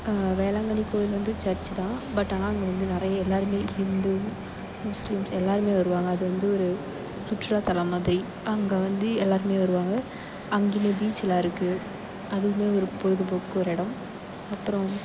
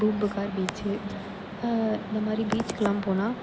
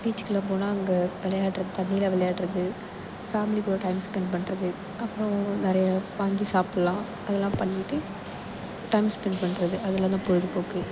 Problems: constant background noise, echo